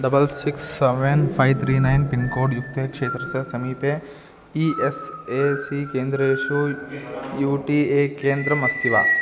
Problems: background sounds at intervals